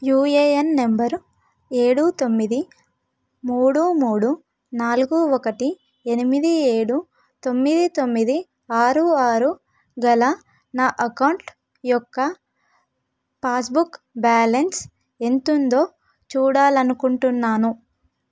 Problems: none marked